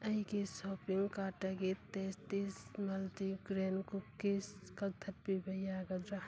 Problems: background sounds at intervals